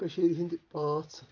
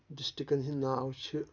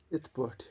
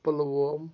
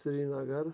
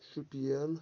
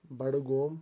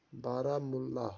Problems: low volume